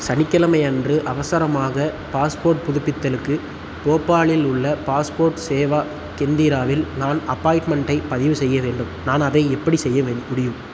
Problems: constant background noise